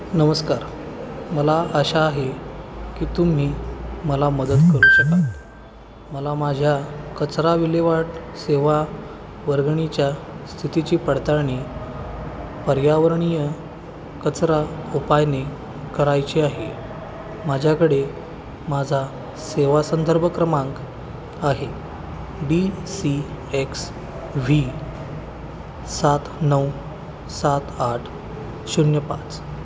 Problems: constant background noise